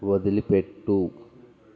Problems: none marked